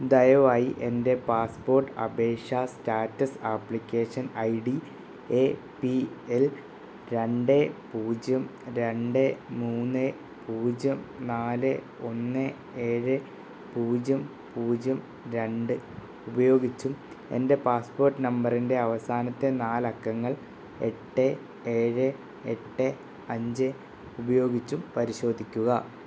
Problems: none marked